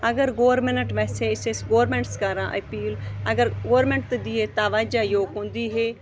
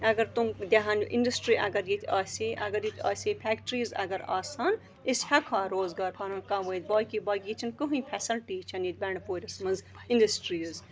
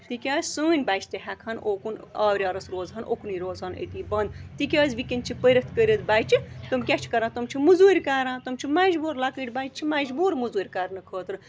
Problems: constant background noise